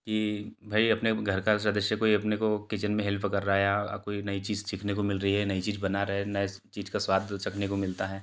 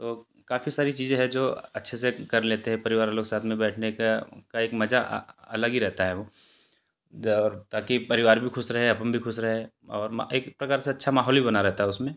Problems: background sounds at intervals